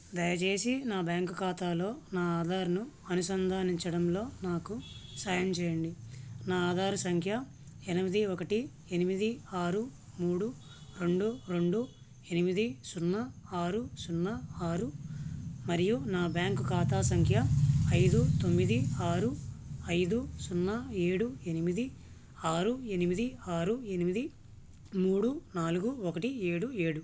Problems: low volume